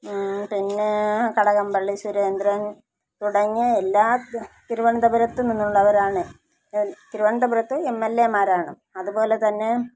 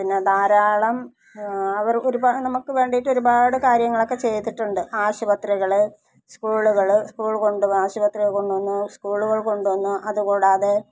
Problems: low volume